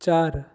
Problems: constant background noise